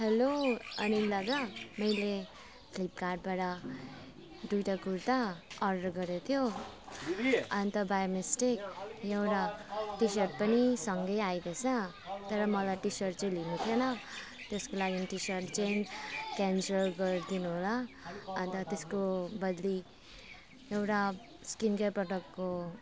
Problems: none marked